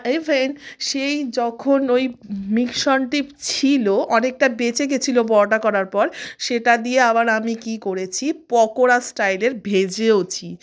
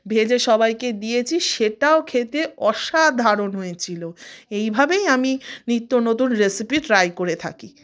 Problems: none marked